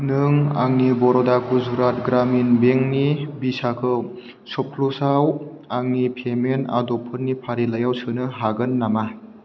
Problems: none marked